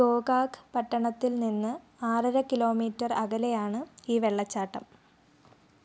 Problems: low volume